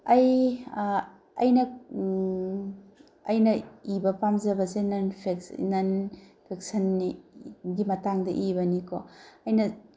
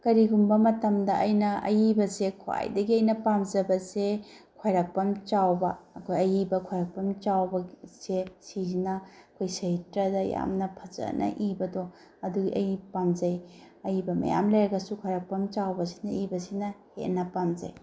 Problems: background sounds at intervals